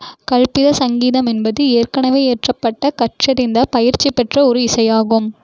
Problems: none marked